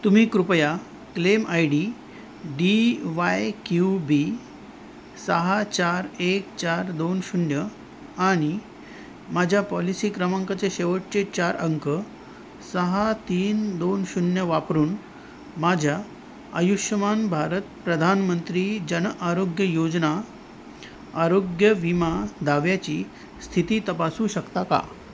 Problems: constant background noise